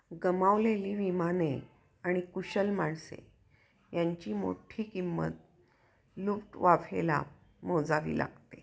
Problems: none marked